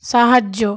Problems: none marked